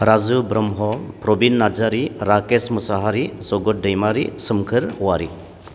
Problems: constant background noise